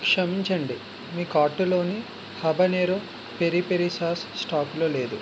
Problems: constant background noise